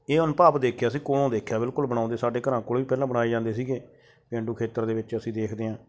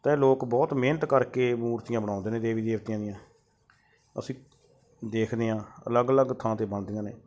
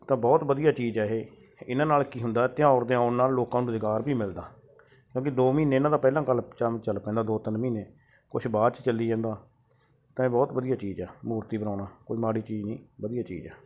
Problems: background sounds at intervals